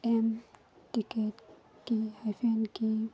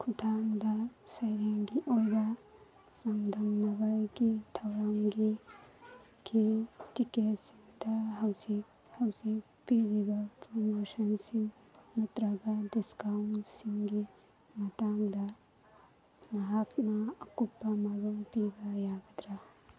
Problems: constant background noise, background conversations at intervals